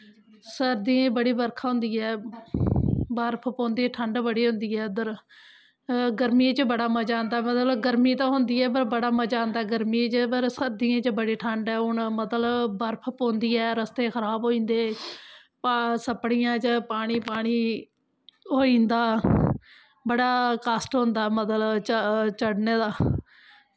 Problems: constant background noise